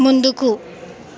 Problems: constant background noise